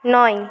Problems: none marked